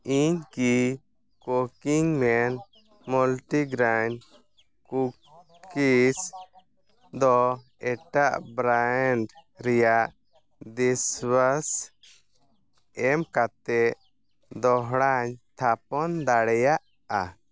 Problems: none marked